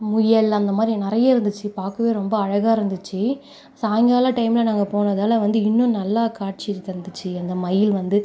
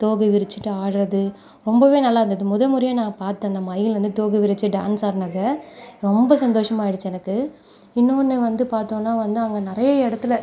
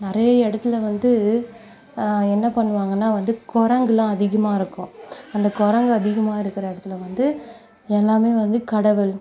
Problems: constant background noise